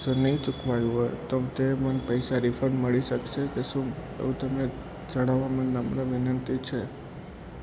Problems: constant background noise